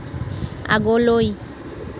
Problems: constant background noise